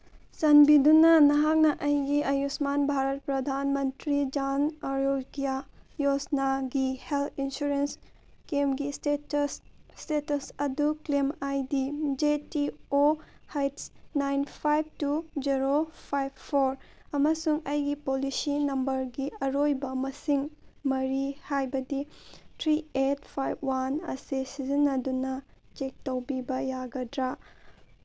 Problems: none marked